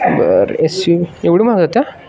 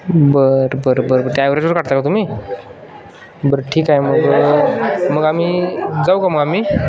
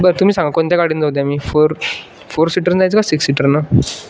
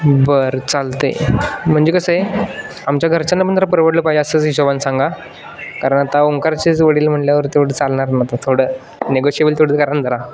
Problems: constant background noise, background conversations at intervals